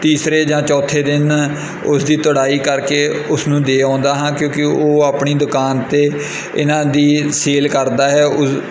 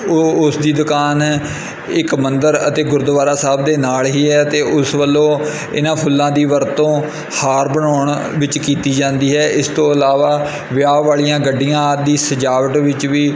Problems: constant background noise